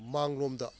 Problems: low volume